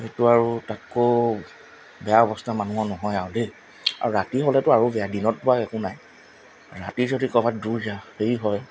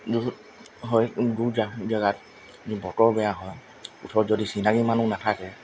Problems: constant background noise